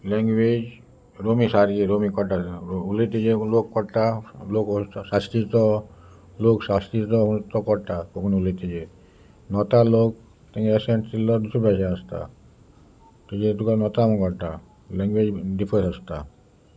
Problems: constant background noise, background conversations at intervals